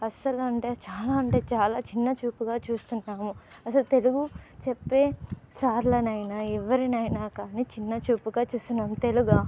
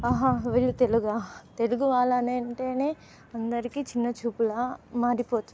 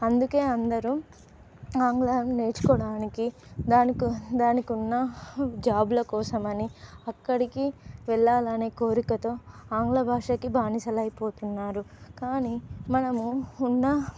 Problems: background sounds at intervals